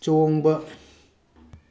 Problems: none marked